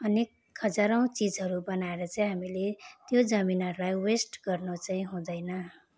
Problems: constant background noise